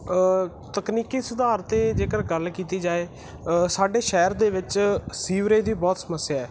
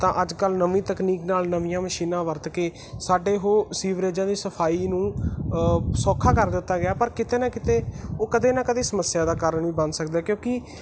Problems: background sounds at intervals